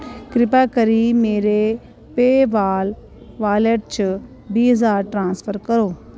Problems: none marked